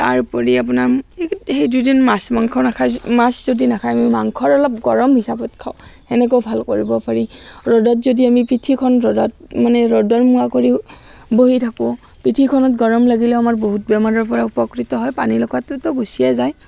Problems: constant background noise